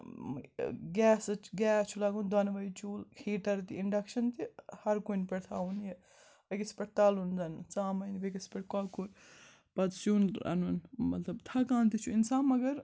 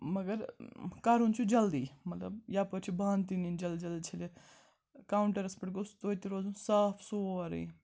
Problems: background sounds at intervals, background conversations at intervals